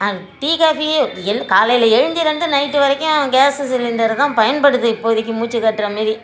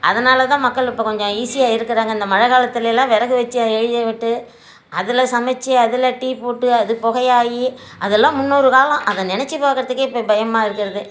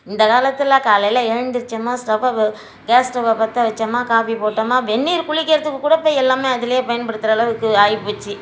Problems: none marked